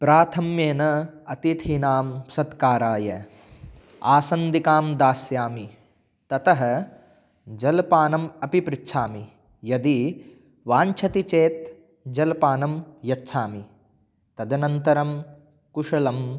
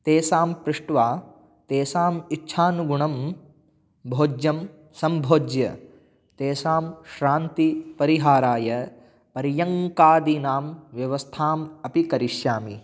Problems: none marked